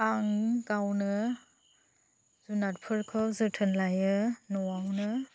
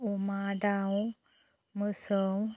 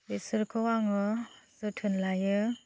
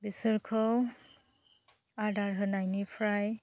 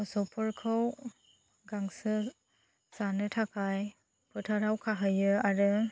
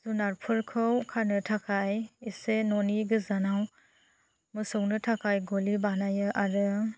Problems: low volume